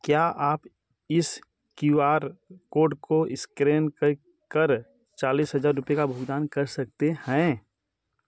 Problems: background sounds at intervals